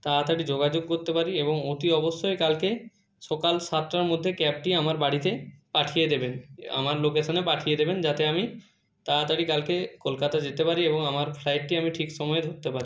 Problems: none marked